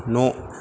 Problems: constant background noise